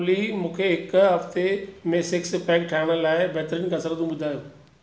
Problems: none marked